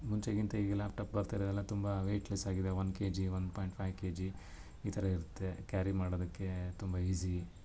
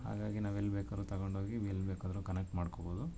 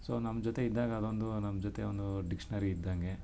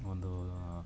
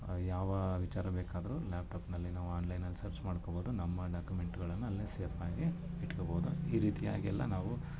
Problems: background sounds at intervals